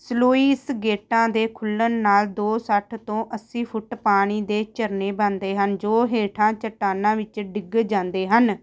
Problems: background sounds at intervals